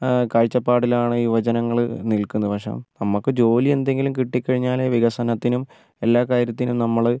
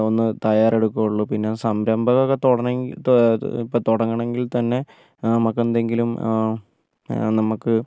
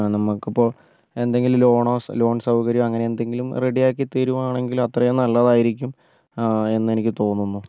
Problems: low volume